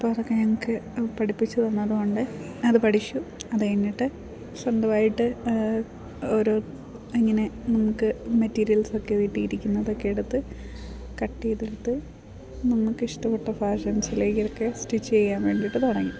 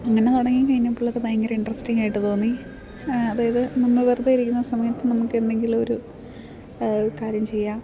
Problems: background sounds at intervals